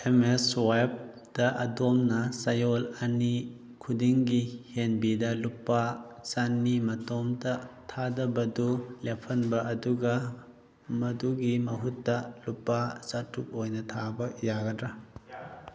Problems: background conversations at intervals